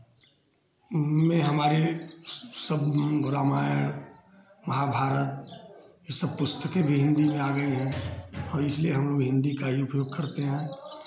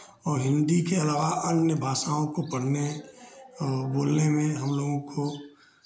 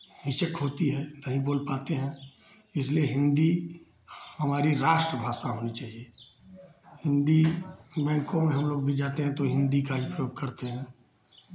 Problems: background sounds at intervals